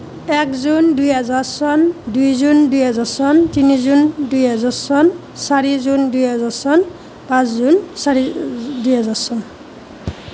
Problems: none marked